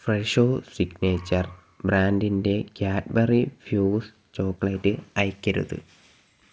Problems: none marked